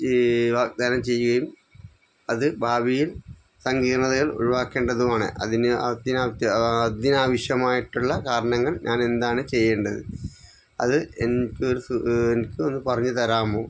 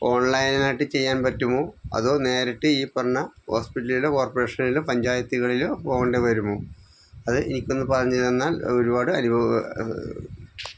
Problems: none marked